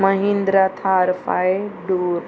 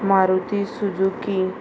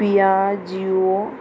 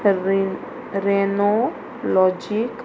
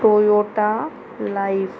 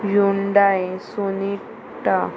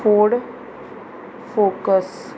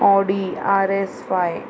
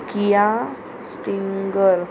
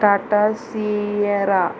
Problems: constant background noise, continuous background conversations